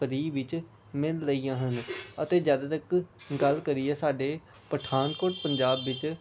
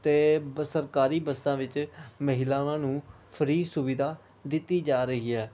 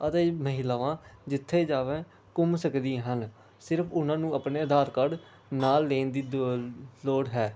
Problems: background sounds at intervals, background conversations at intervals